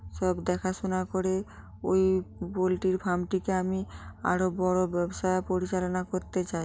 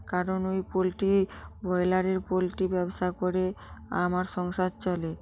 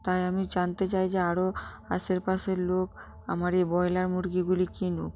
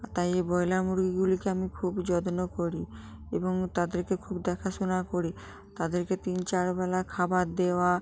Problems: none marked